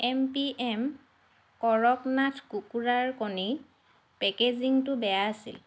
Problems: constant background noise